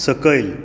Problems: constant background noise